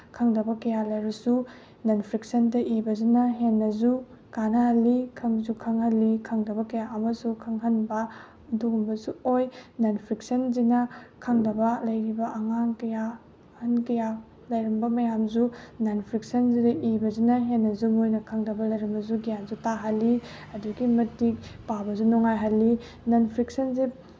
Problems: background sounds at intervals